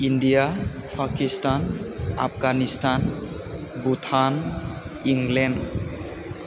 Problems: constant background noise